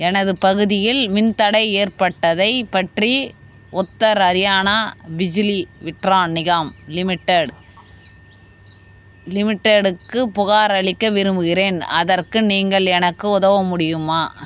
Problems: background sounds at intervals